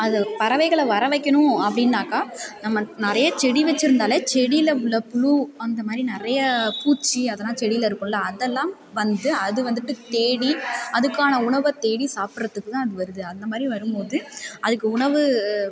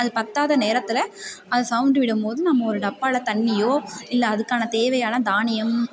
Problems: continuous background conversations